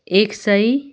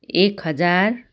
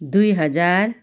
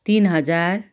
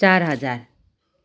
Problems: background sounds at intervals